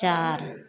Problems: constant background noise